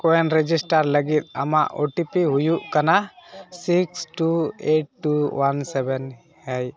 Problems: background sounds at intervals